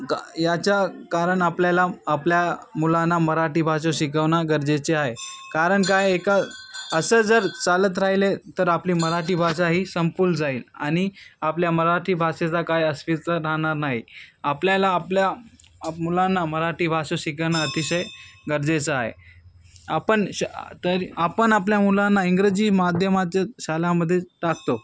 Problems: constant background noise, background conversations at intervals